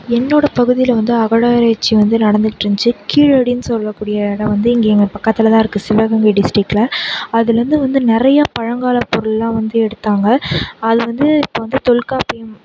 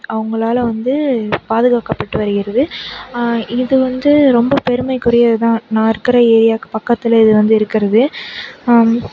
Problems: background sounds at intervals